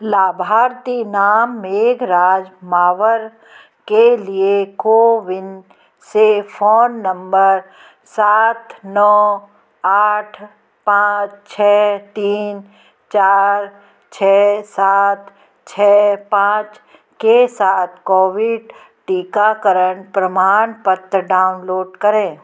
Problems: constant background noise, continuous background conversations